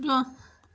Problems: none marked